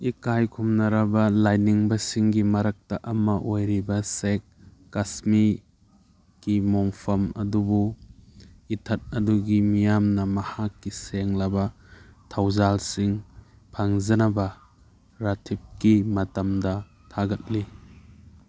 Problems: none marked